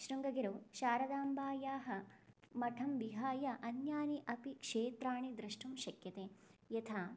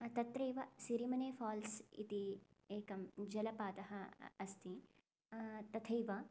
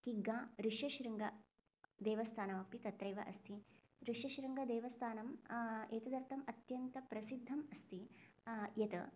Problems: low volume